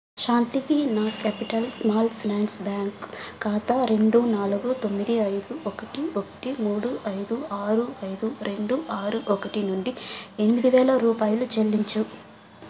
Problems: constant background noise